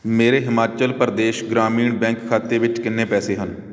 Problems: none marked